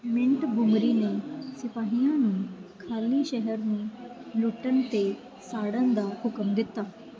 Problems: none marked